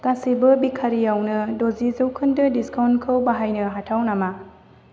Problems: constant background noise